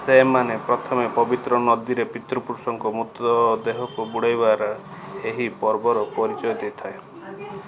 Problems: background conversations at intervals